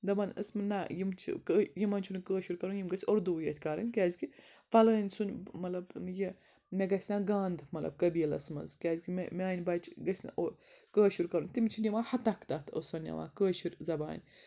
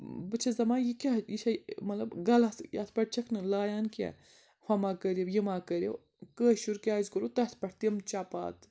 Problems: background sounds at intervals